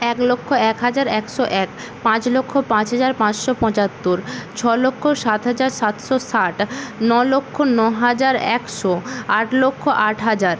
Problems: constant background noise